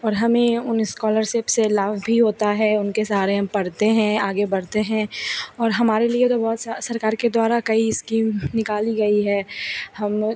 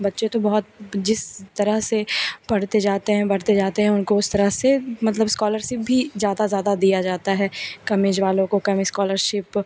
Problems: none marked